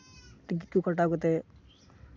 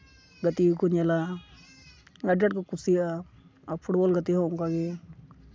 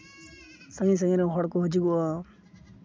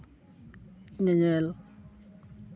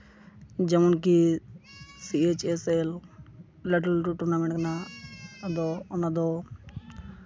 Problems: constant background noise